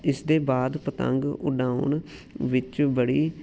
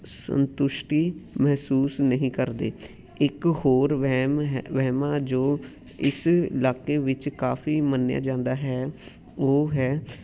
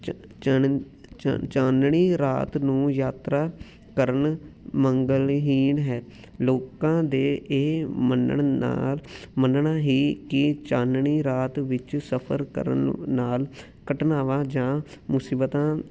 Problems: background sounds at intervals